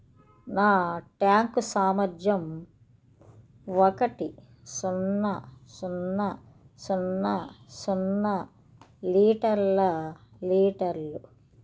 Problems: none marked